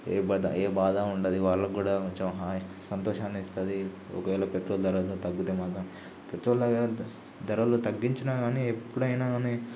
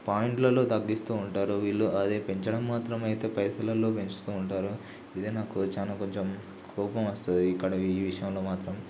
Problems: low volume